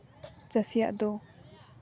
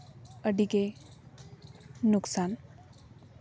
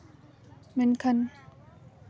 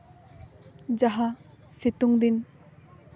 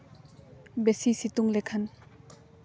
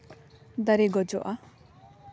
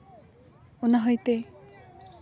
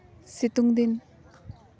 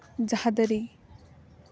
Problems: none marked